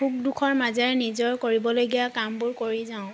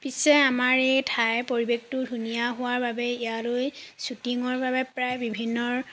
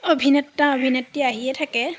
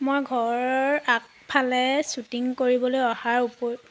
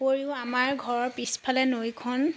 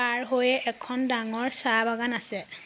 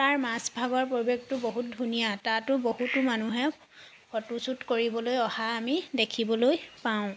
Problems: none marked